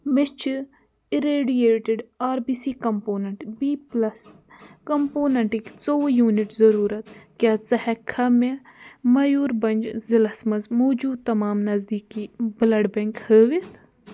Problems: background sounds at intervals